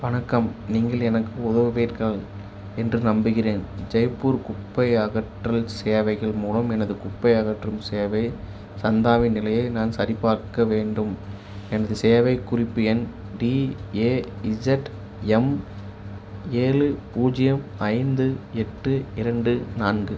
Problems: none marked